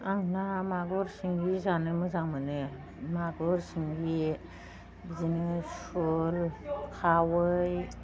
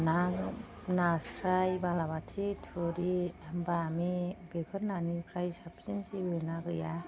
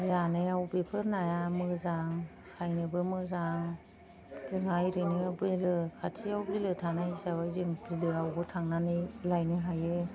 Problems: none marked